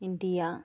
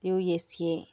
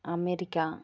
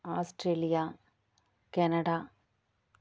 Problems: none marked